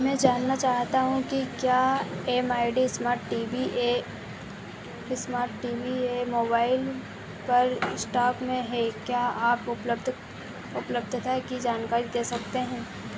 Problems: constant background noise